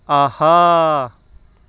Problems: background sounds at intervals